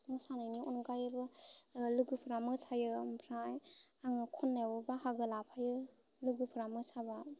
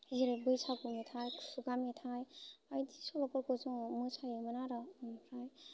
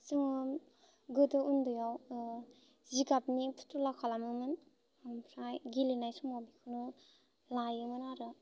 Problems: constant background noise